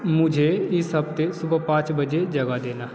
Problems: constant background noise